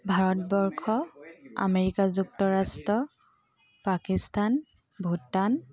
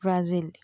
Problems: constant background noise